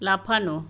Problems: constant background noise